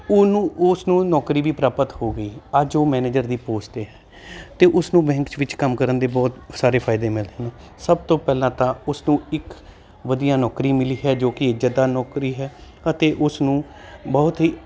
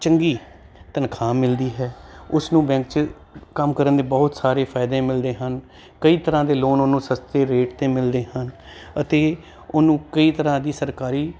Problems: constant background noise